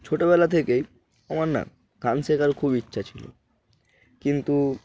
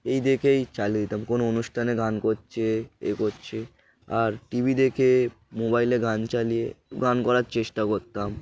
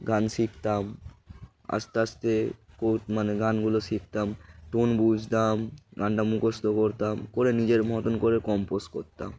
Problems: background sounds at intervals